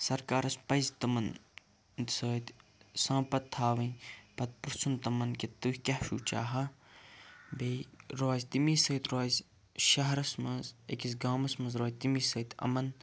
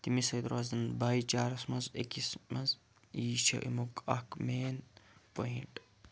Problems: background sounds at intervals, low volume